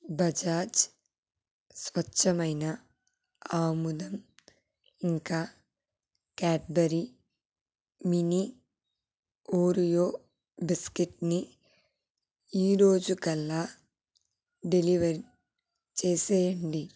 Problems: low volume